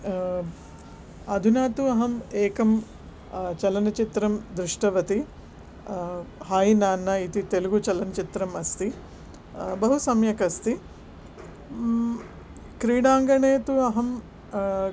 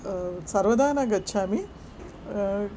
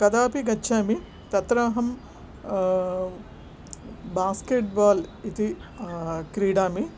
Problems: background sounds at intervals